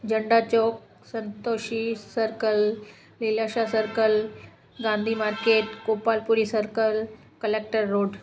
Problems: constant background noise, echo